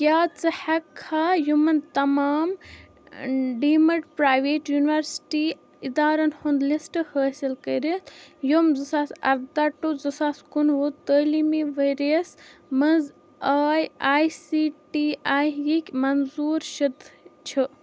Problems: background sounds at intervals